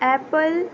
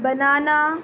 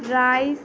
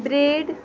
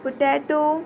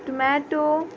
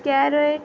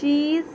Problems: constant background noise